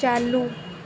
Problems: none marked